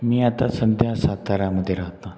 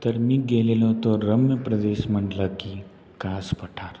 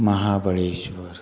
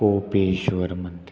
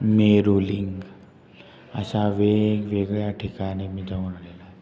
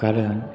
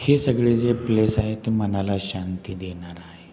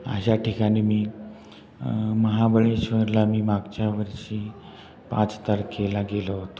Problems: constant background noise